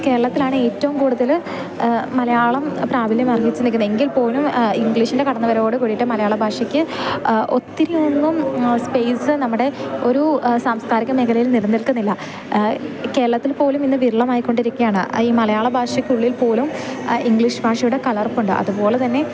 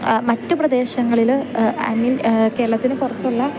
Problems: constant background noise, continuous background conversations, low volume